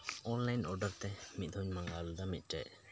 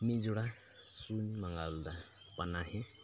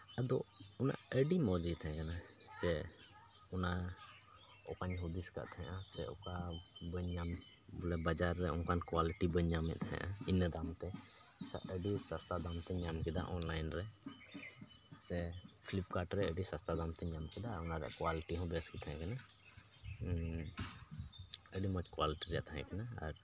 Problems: none marked